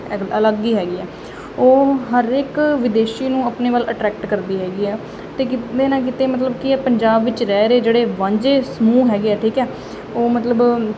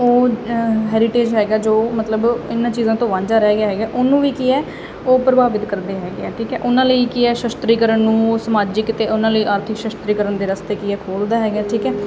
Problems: constant background noise